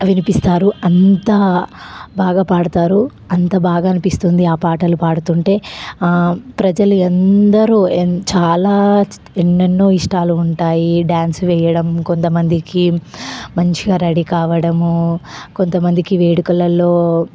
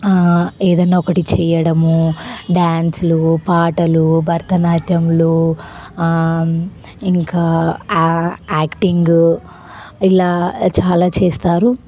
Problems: constant background noise